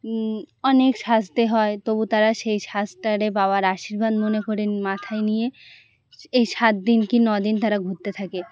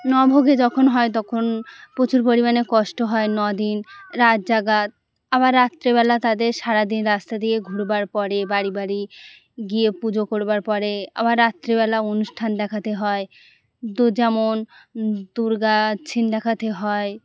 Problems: constant background noise